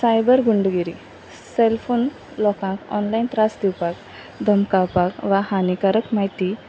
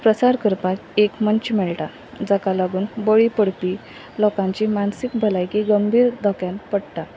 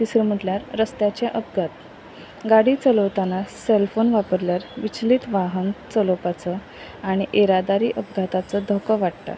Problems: none marked